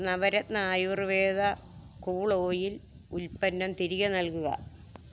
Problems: low volume